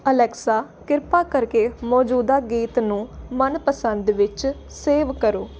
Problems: none marked